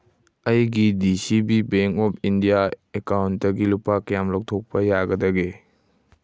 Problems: none marked